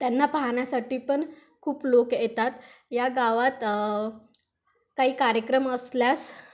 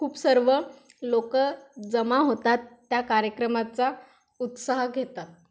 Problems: background sounds at intervals